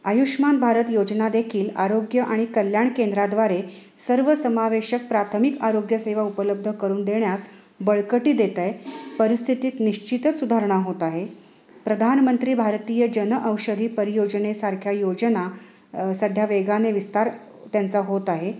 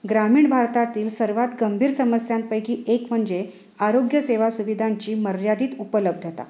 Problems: none marked